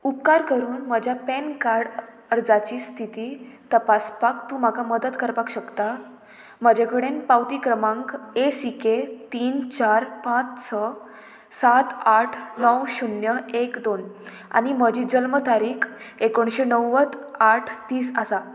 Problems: none marked